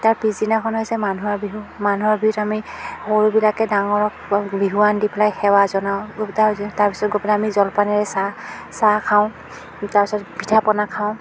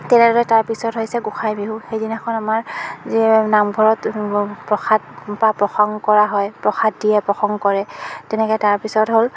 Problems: constant background noise, background conversations at intervals